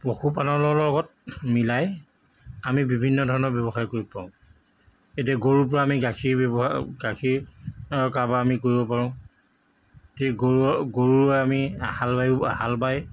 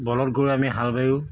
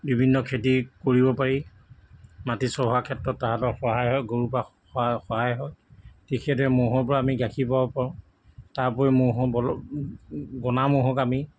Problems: background sounds at intervals